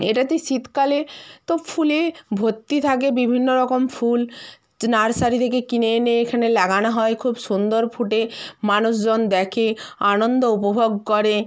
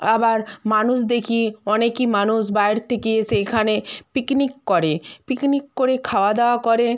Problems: constant background noise